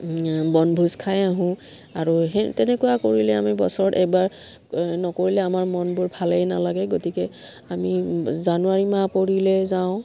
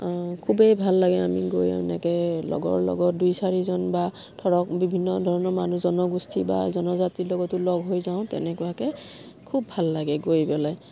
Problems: background sounds at intervals